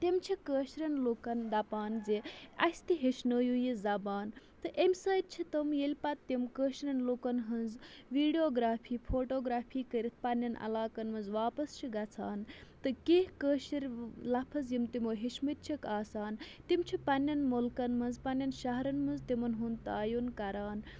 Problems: background sounds at intervals